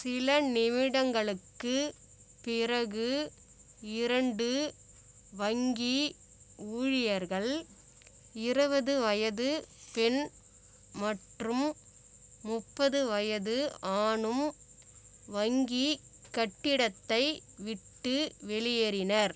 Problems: constant background noise